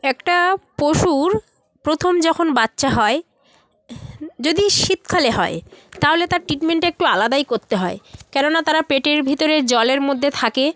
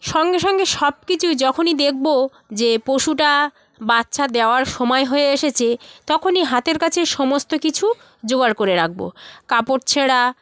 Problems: background conversations at intervals